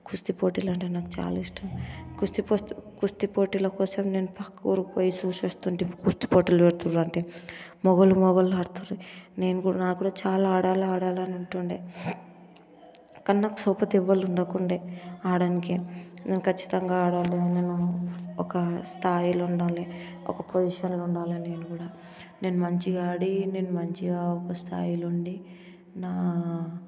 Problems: constant background noise, background conversations at intervals